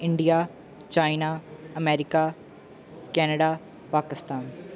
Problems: background sounds at intervals